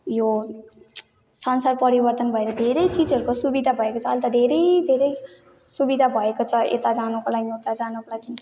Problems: none marked